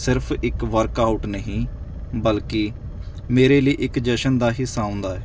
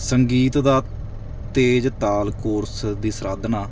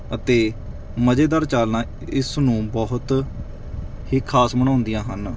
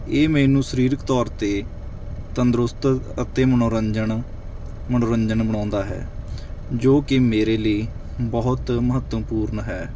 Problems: background sounds at intervals